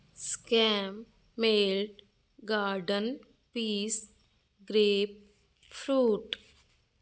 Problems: constant background noise